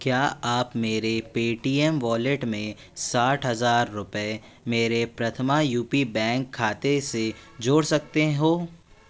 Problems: constant background noise